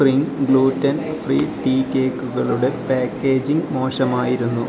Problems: constant background noise